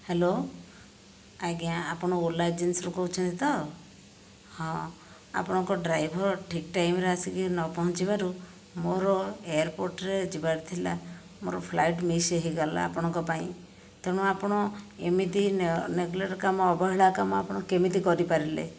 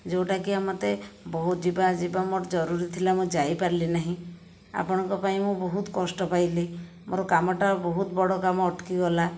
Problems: none marked